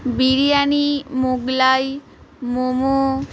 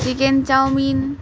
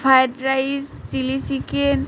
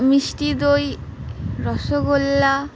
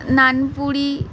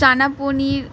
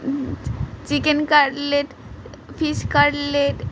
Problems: constant background noise, continuous background conversations